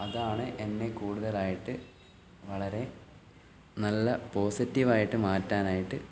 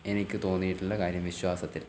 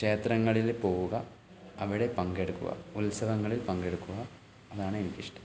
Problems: low volume